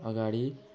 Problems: background sounds at intervals